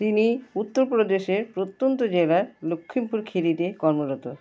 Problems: constant background noise